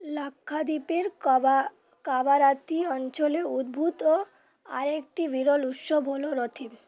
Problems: constant background noise, background conversations at intervals